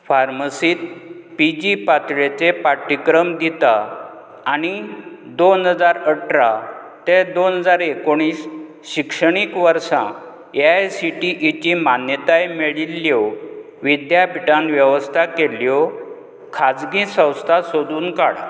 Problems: background sounds at intervals